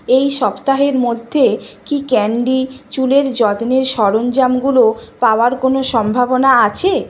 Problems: constant background noise